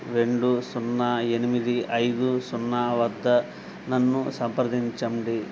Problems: none marked